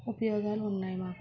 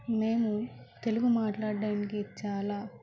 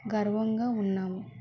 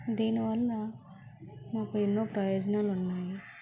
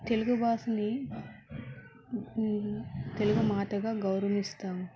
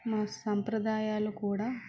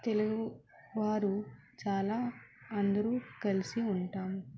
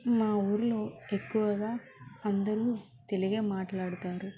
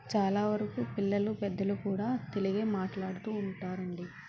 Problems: constant background noise, background conversations at intervals, low volume